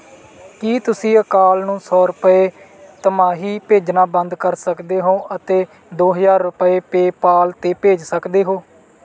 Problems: none marked